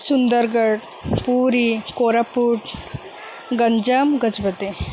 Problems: constant background noise